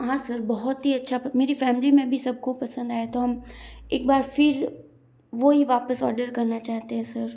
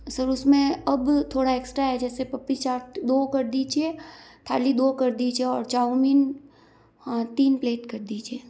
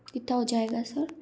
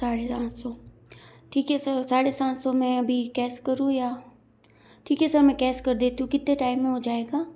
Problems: none marked